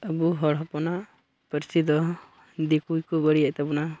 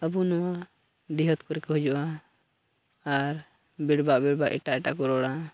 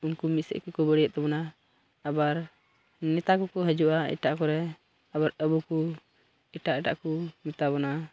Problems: background sounds at intervals